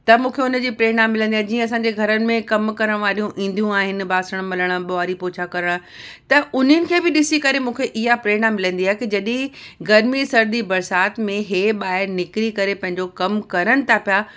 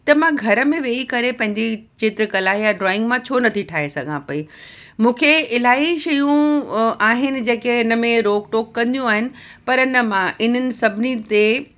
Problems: none marked